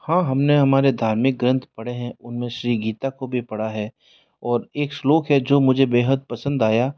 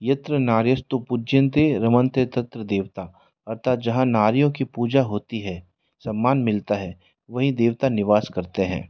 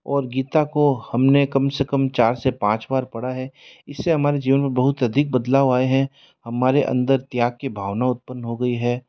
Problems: background sounds at intervals